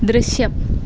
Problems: constant background noise